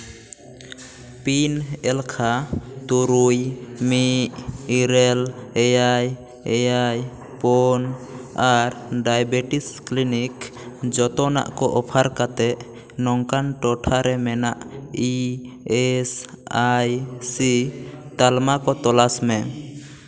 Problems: background conversations at intervals, echo